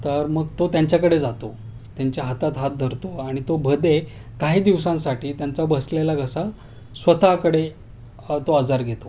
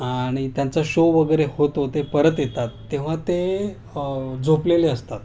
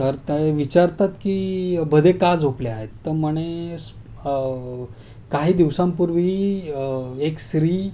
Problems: constant background noise